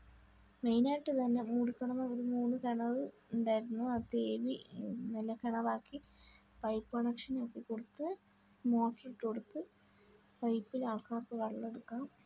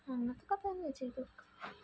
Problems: low volume